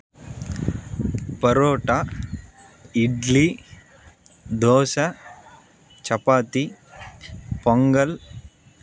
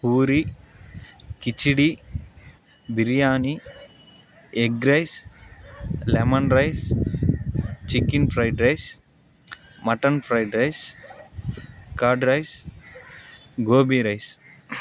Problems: constant background noise